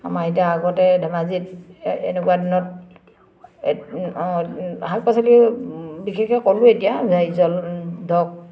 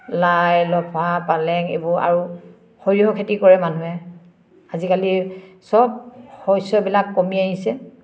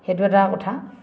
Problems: constant background noise, background conversations at intervals